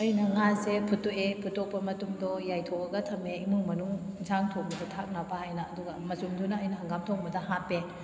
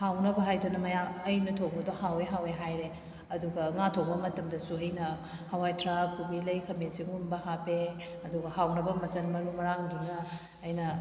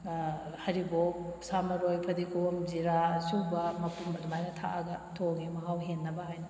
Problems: none marked